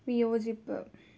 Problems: low volume